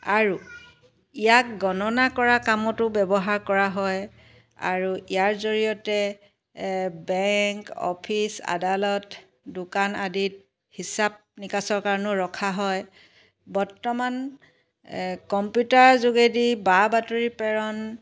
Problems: background sounds at intervals